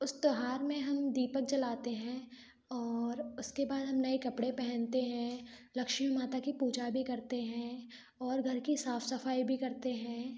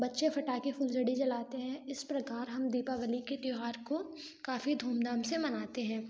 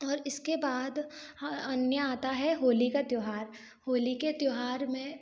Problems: background sounds at intervals